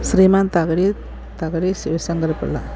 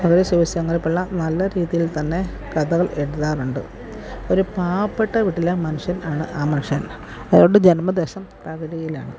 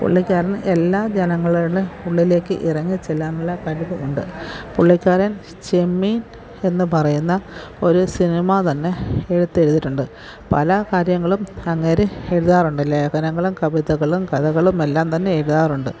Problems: background sounds at intervals